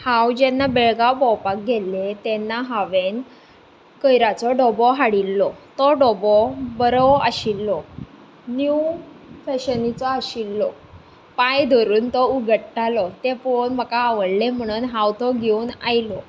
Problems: none marked